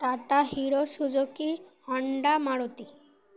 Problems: background sounds at intervals, background conversations at intervals